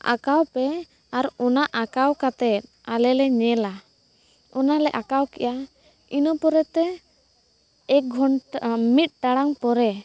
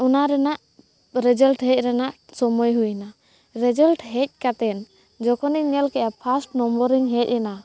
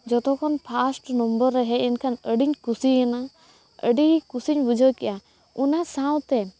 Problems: background sounds at intervals